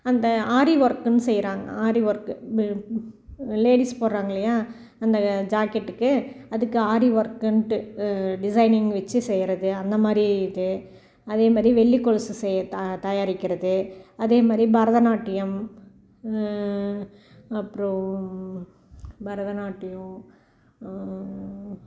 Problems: background sounds at intervals